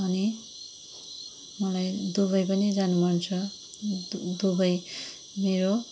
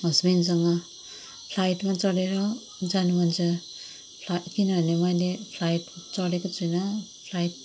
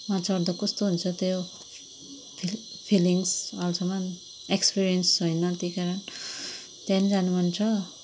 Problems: background sounds at intervals